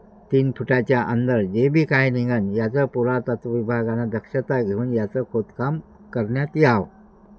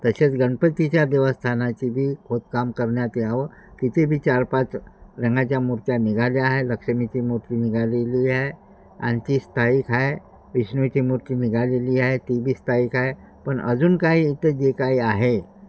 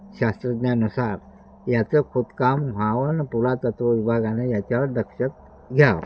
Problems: constant background noise